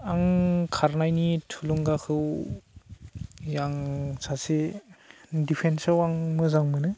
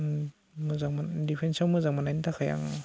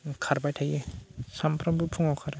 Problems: constant background noise